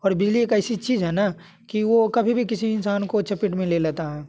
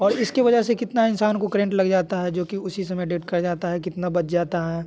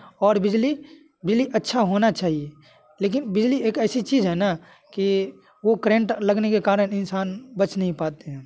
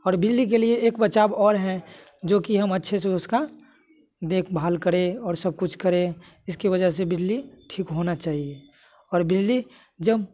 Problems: none marked